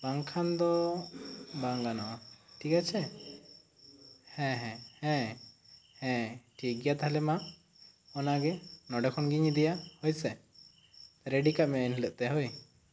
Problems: none marked